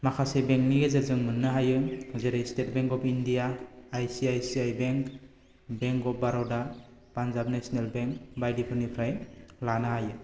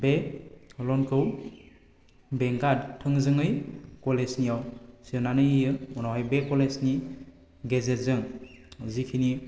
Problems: constant background noise